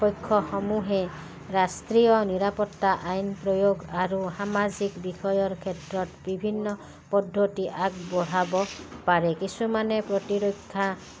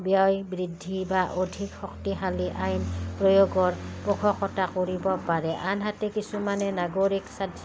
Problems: background sounds at intervals